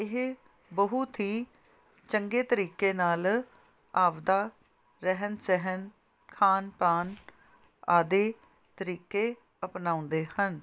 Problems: none marked